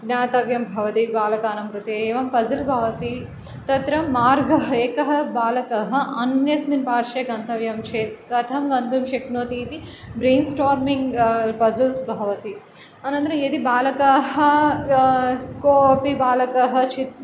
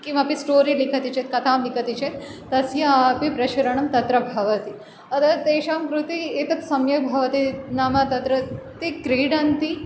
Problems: none marked